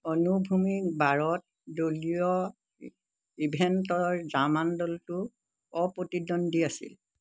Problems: constant background noise